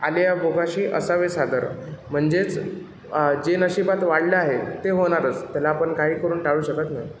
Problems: constant background noise, background conversations at intervals